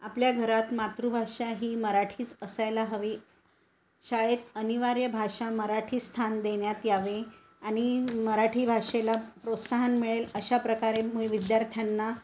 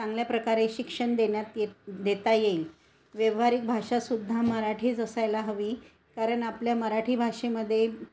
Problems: constant background noise